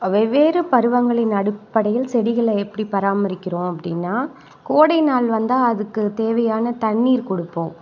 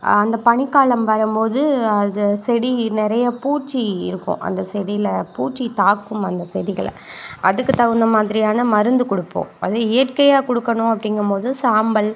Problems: none marked